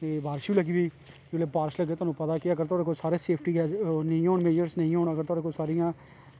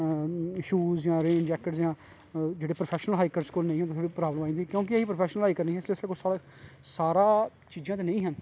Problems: constant background noise